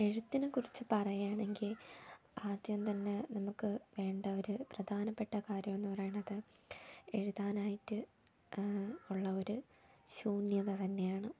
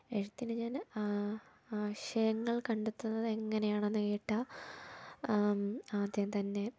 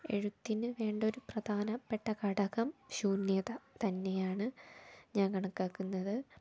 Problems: low volume